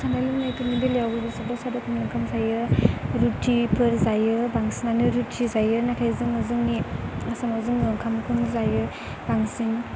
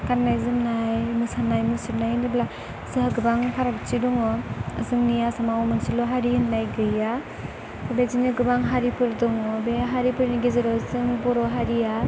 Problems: constant background noise